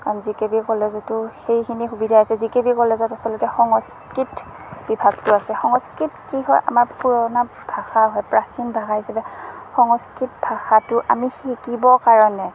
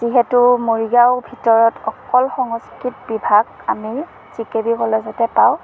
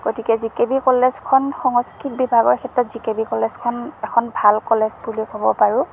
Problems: constant background noise